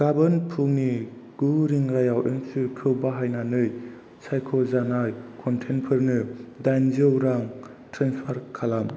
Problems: constant background noise